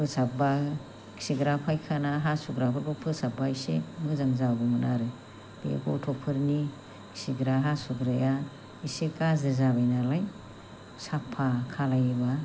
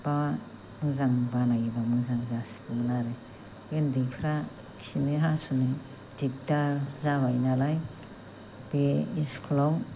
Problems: low volume